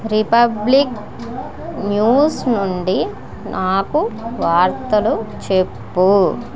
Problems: continuous background conversations